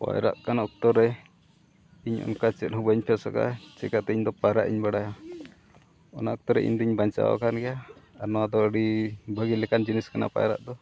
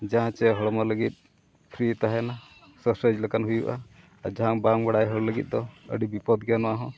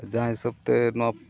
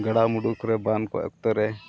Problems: constant background noise, background conversations at intervals